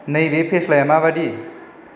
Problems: constant background noise